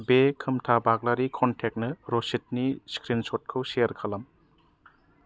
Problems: none marked